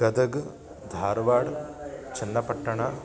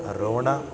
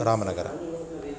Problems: constant background noise